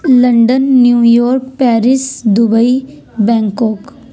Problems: none marked